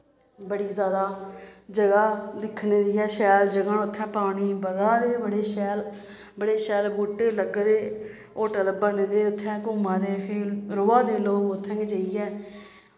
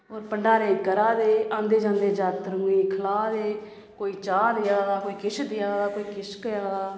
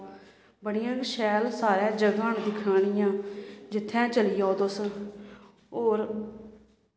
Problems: none marked